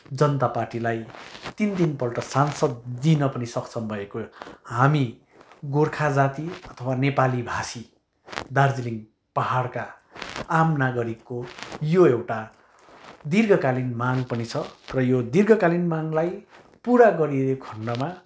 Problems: none marked